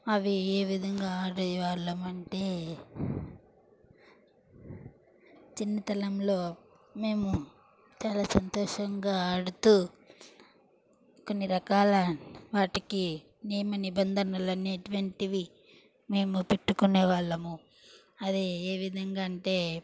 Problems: background sounds at intervals